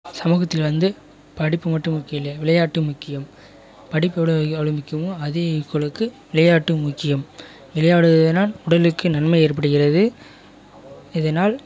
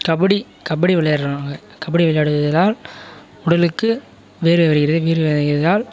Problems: background sounds at intervals, continuous background conversations